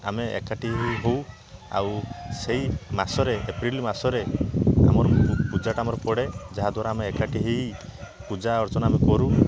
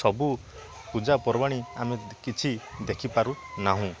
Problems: constant background noise, continuous background conversations